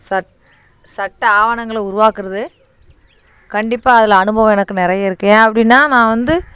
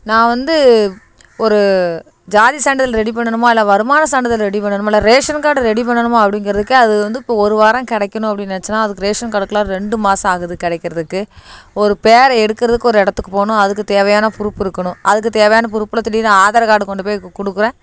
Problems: constant background noise